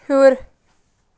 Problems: constant background noise